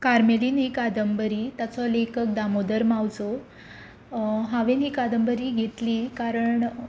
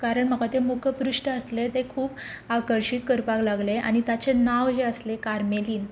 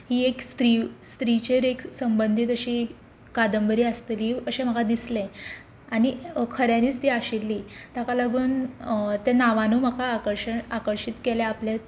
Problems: background sounds at intervals